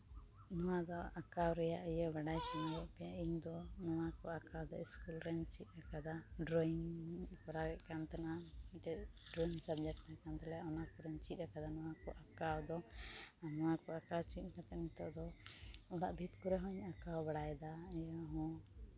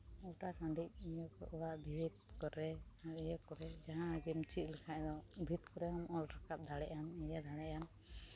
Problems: low volume